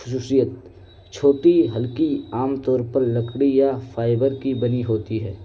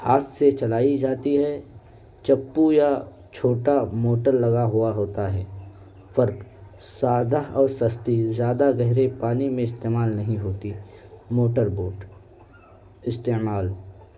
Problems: constant background noise